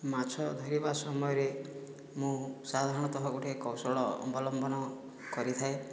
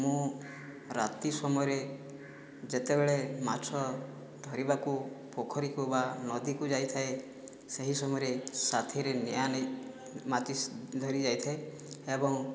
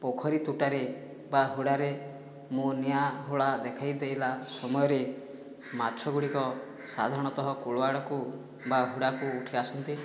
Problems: background sounds at intervals